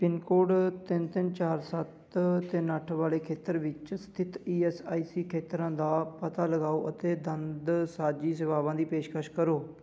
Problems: background sounds at intervals